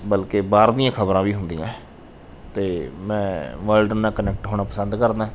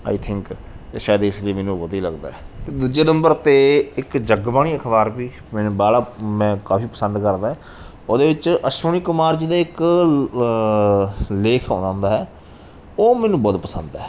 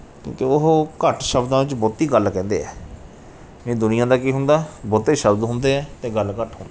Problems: background sounds at intervals